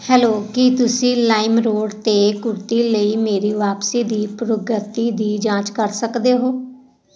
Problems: none marked